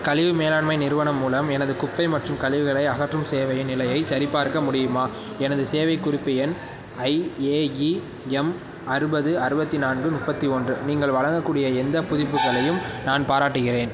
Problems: background sounds at intervals